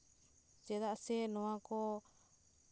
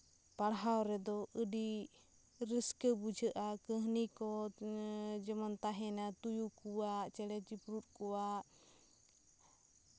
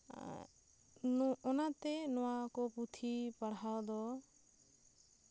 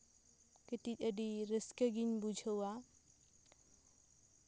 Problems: constant background noise